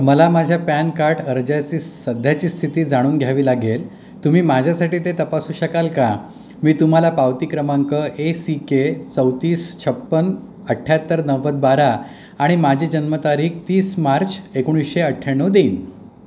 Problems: none marked